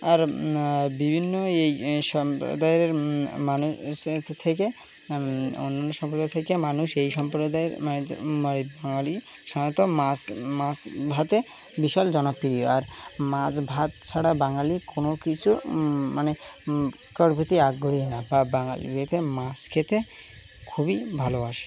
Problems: background sounds at intervals